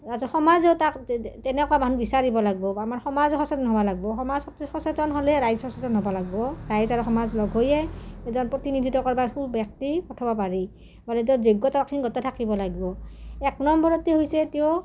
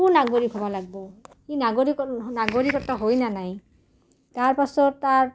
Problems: low volume